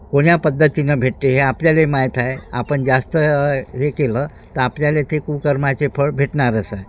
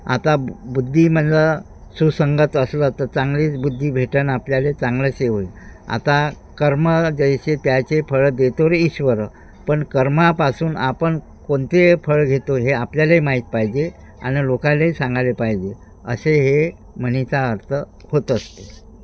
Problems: none marked